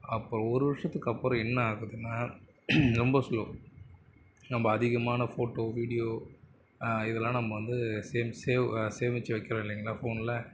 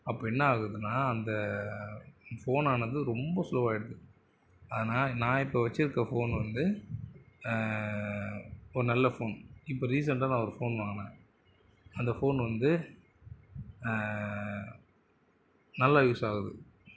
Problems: constant background noise, continuous background conversations